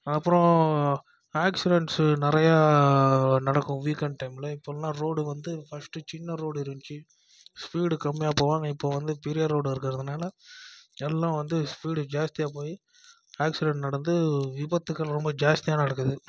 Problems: none marked